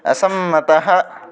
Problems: constant background noise